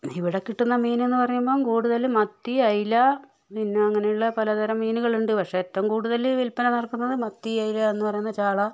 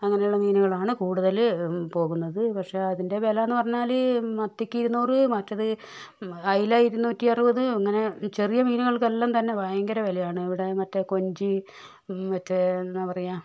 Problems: low volume